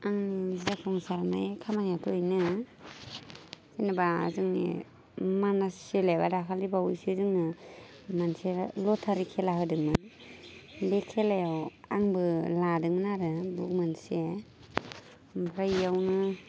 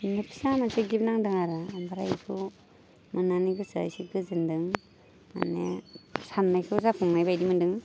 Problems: constant background noise